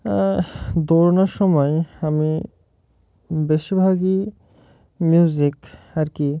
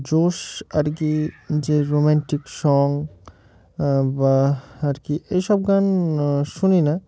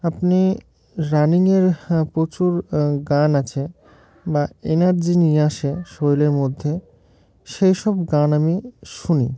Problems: background sounds at intervals